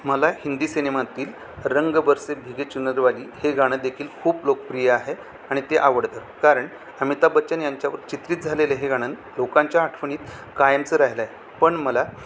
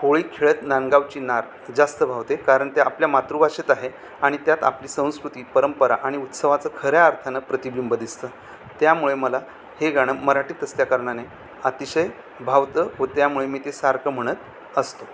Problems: constant background noise